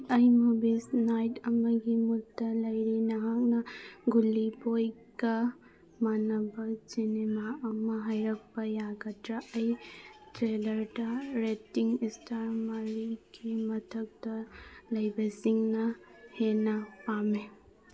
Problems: background sounds at intervals, background conversations at intervals